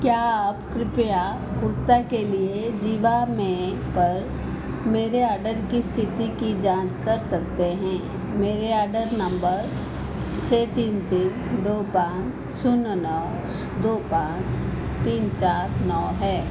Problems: none marked